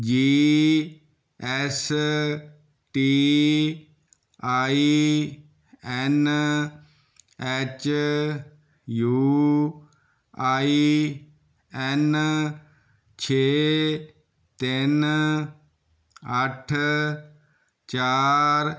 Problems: none marked